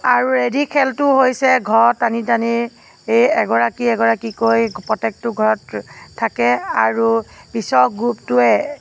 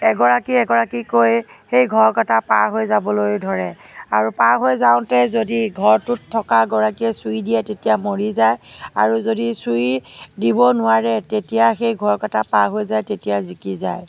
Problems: constant background noise, background conversations at intervals